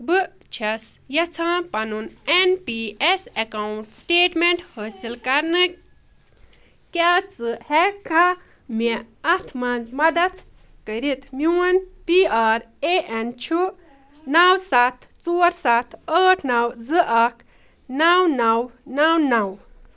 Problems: none marked